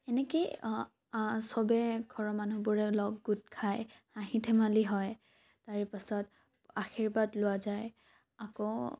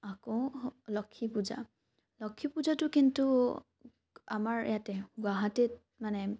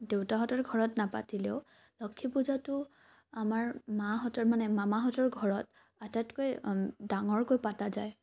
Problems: none marked